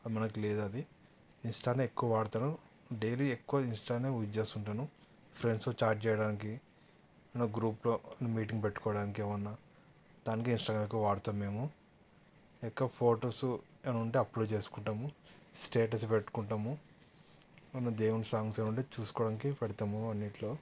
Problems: none marked